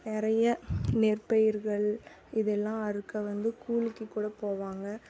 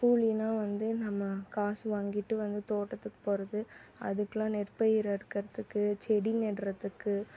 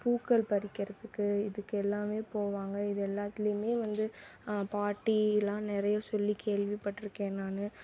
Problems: background sounds at intervals